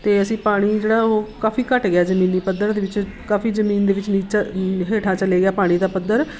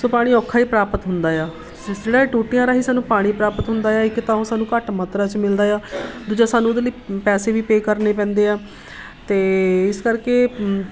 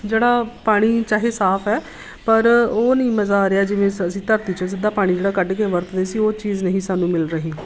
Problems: none marked